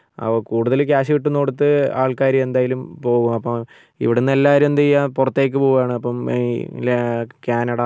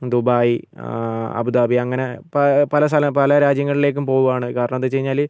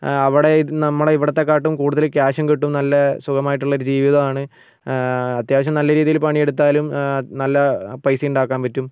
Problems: none marked